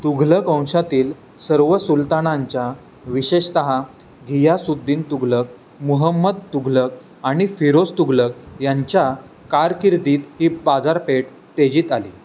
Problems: constant background noise